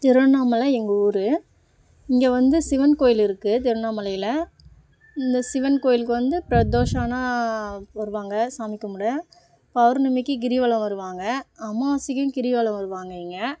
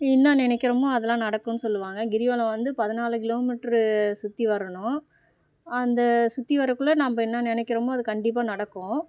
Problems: none marked